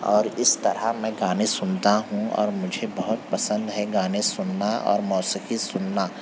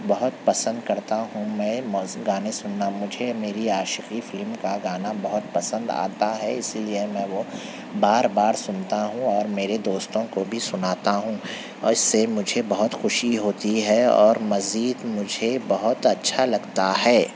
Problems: constant background noise